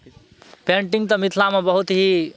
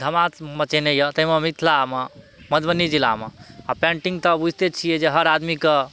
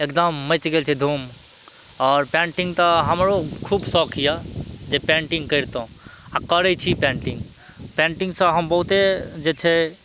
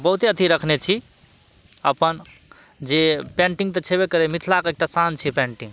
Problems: none marked